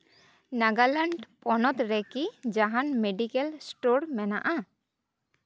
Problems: none marked